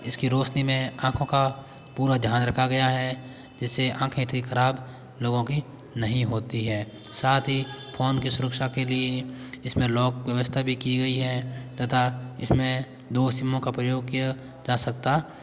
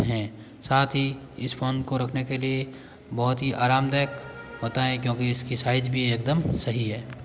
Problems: background sounds at intervals, background conversations at intervals